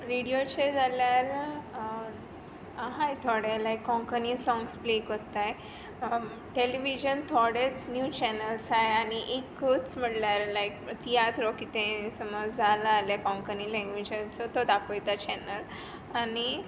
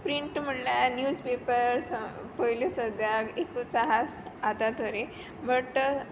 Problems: none marked